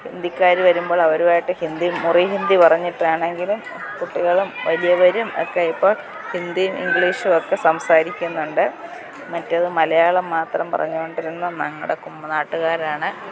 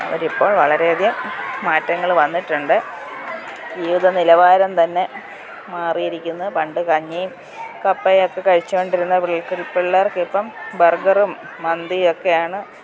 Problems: background sounds at intervals